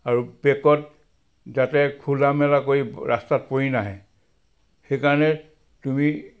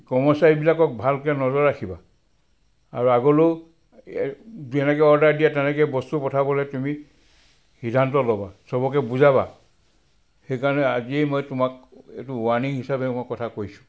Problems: background sounds at intervals